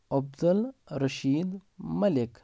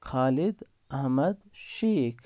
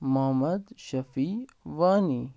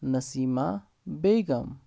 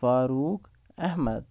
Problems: none marked